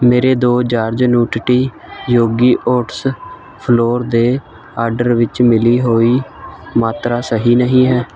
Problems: constant background noise